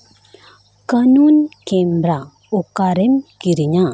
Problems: none marked